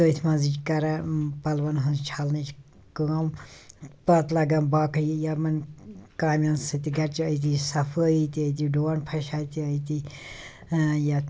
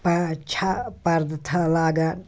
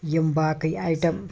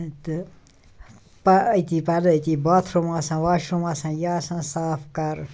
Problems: none marked